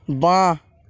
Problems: none marked